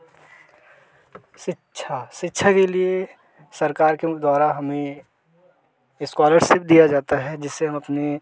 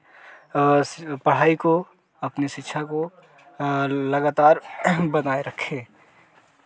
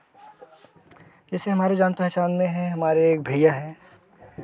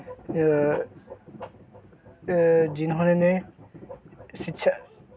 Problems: none marked